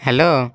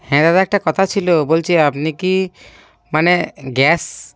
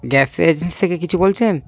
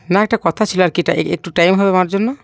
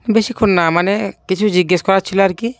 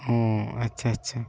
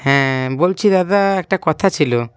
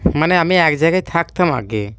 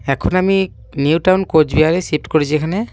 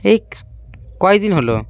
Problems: none marked